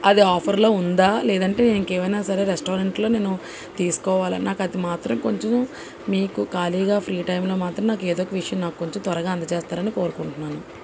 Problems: constant background noise